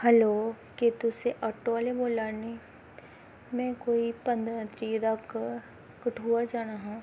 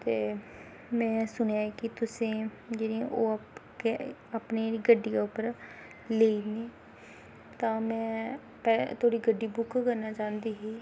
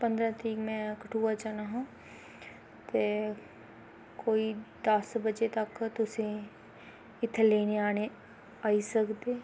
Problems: constant background noise